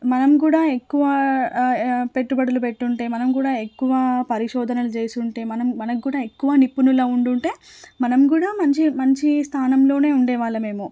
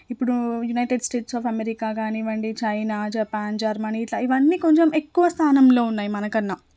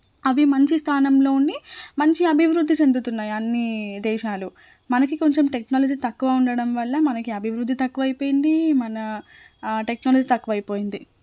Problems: none marked